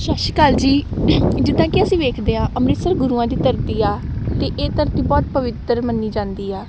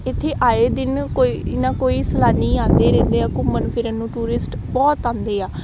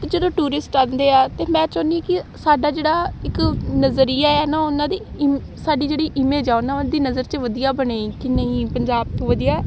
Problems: none marked